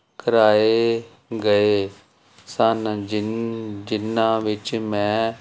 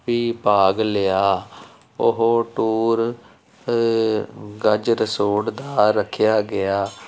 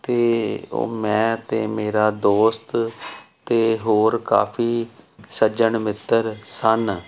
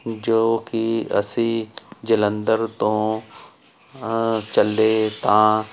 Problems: constant background noise